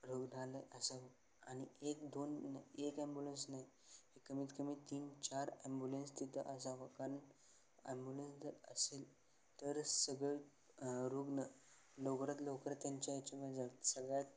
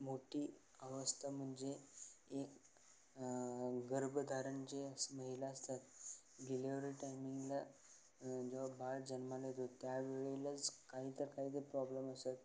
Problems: none marked